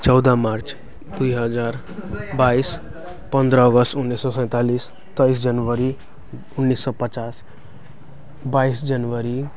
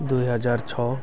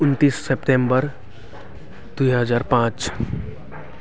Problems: constant background noise